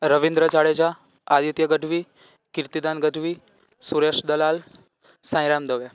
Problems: none marked